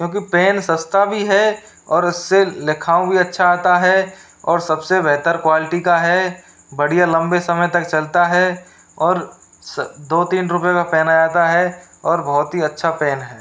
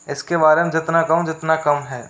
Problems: constant background noise